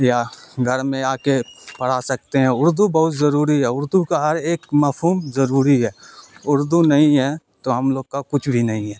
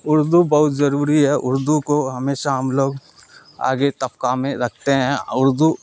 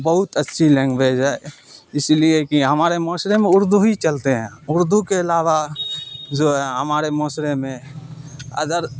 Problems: constant background noise